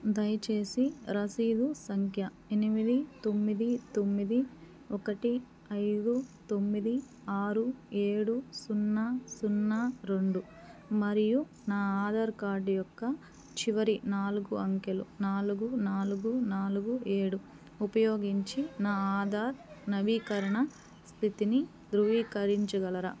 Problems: background conversations at intervals